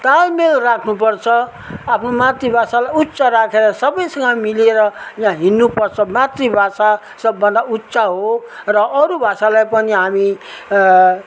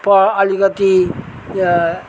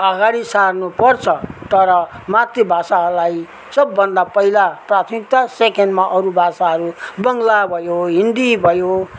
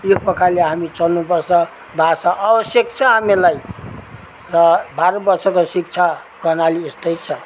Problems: none marked